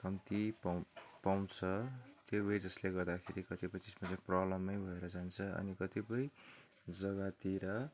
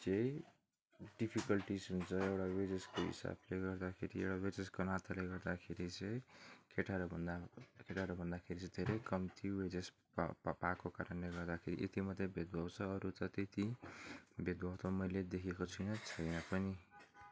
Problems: background sounds at intervals, background conversations at intervals